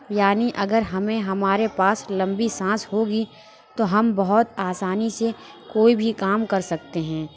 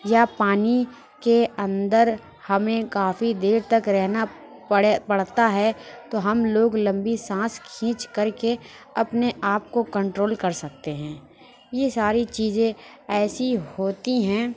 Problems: constant background noise